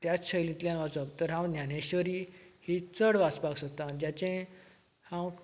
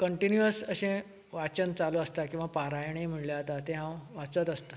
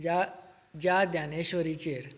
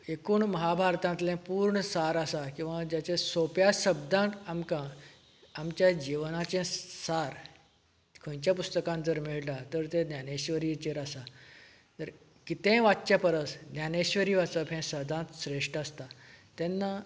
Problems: none marked